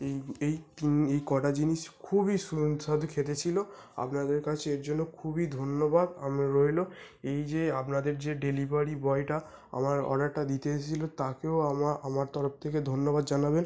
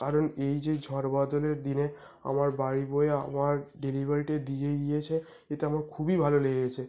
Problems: constant background noise